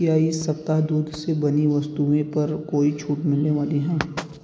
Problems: constant background noise